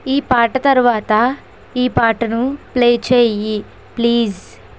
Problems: constant background noise